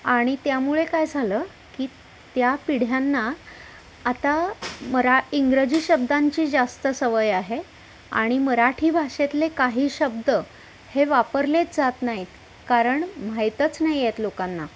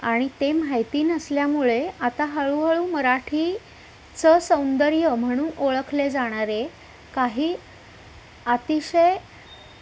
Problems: constant background noise, background conversations at intervals